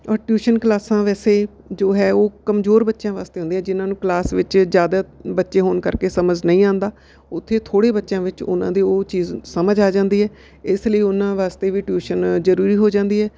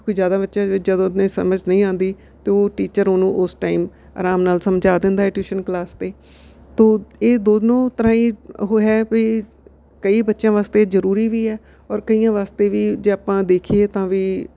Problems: background sounds at intervals